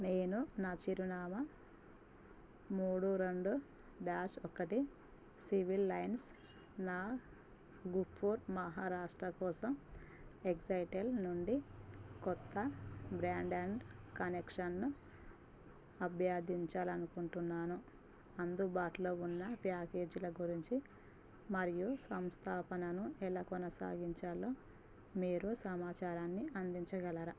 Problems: constant background noise, low volume